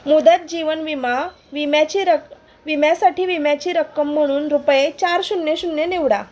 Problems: none marked